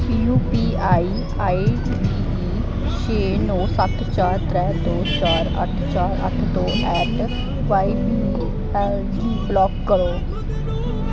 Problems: background sounds at intervals